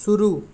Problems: background sounds at intervals